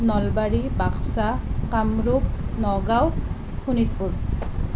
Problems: none marked